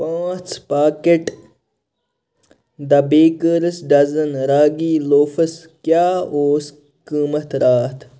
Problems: constant background noise